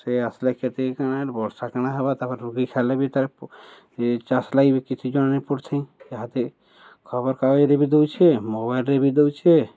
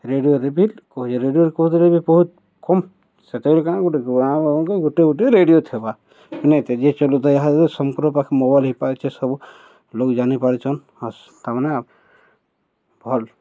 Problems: none marked